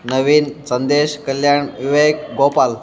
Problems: background conversations at intervals